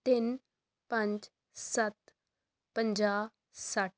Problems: none marked